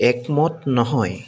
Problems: constant background noise